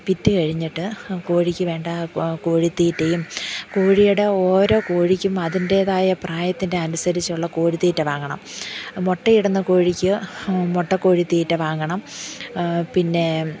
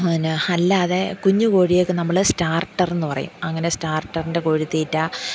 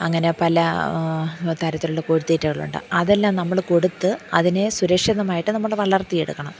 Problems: background sounds at intervals, low volume